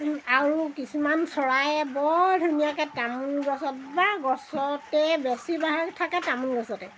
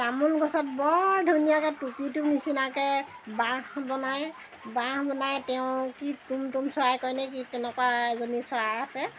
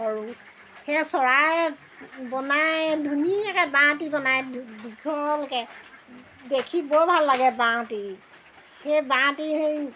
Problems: constant background noise